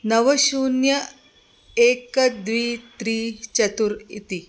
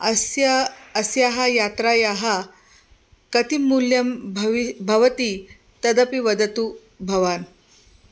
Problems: constant background noise